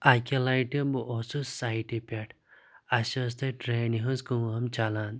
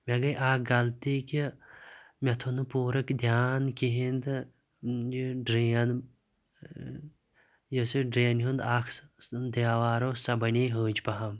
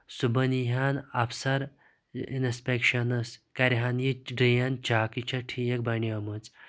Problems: none marked